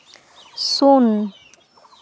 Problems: constant background noise